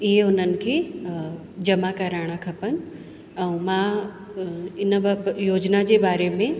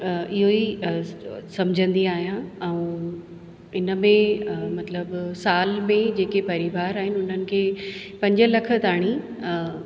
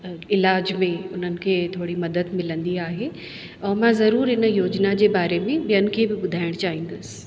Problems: constant background noise, echo